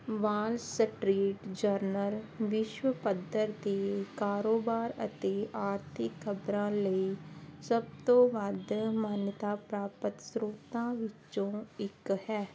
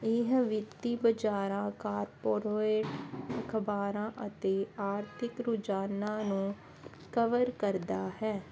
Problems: constant background noise